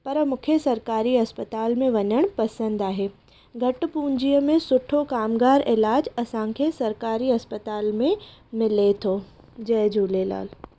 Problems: none marked